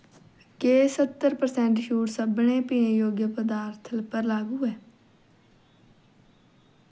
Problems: background sounds at intervals